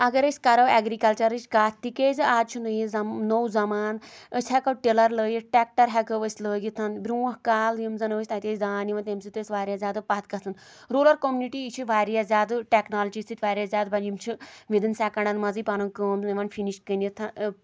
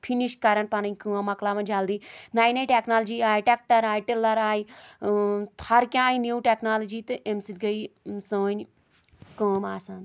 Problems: none marked